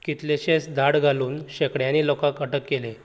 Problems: constant background noise